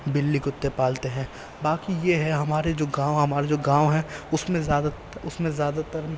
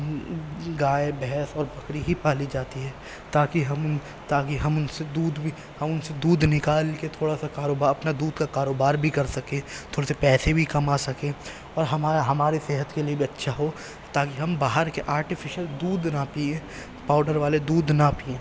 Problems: constant background noise, low volume